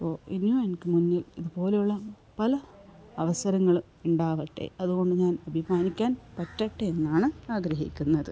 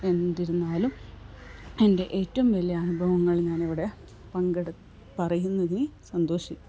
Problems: low volume